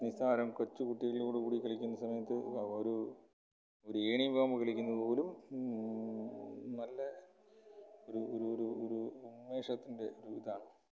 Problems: background sounds at intervals, low volume